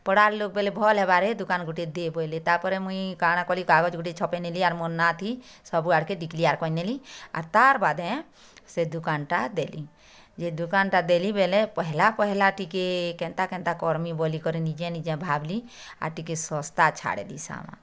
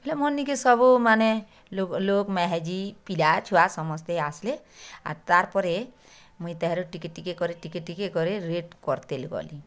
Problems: none marked